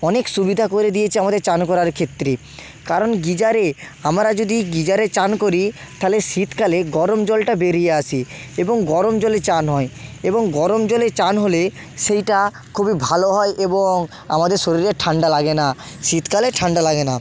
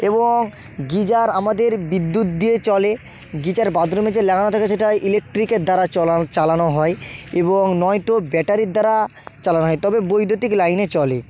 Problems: background sounds at intervals